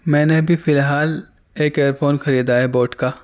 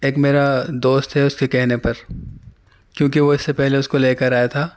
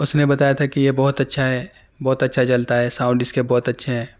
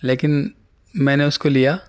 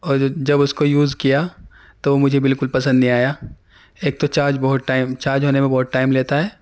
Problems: none marked